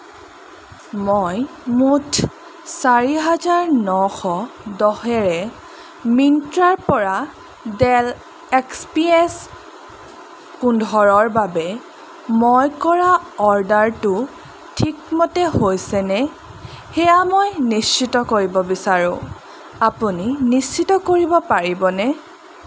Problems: constant background noise